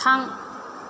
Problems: none marked